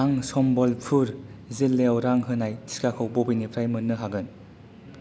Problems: none marked